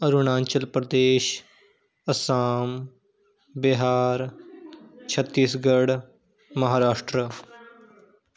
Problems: background conversations at intervals